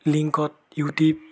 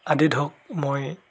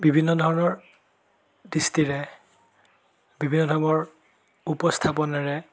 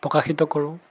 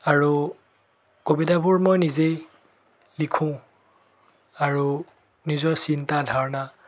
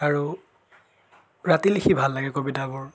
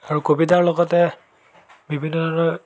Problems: background sounds at intervals, background conversations at intervals